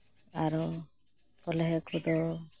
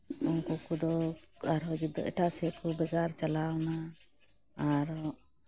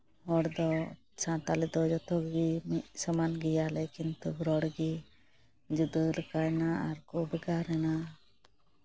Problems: constant background noise